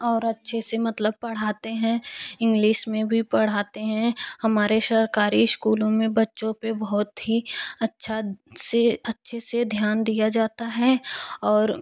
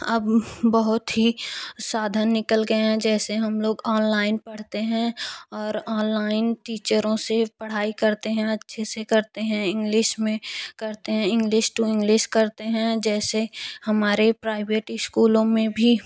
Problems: none marked